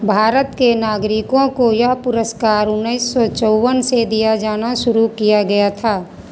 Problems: constant background noise, background conversations at intervals